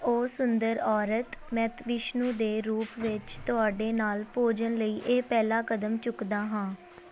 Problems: constant background noise